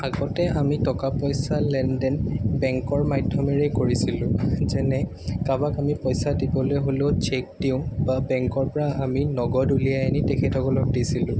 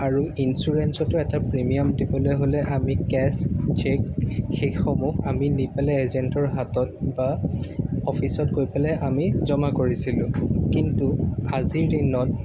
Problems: background sounds at intervals